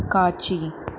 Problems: none marked